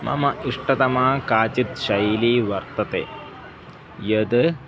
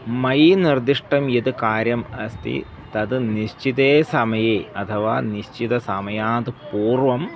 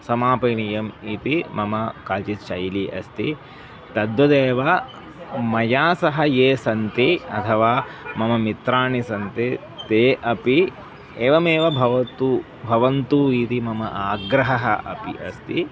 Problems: none marked